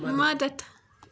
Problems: constant background noise